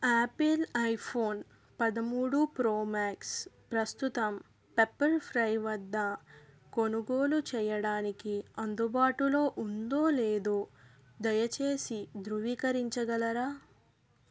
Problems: none marked